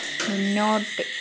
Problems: none marked